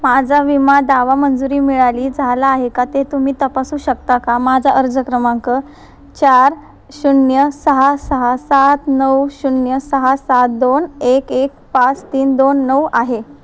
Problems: constant background noise